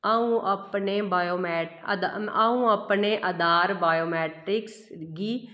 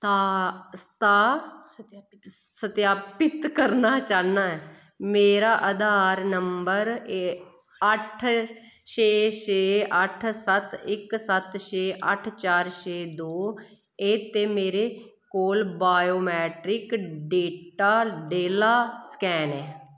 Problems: echo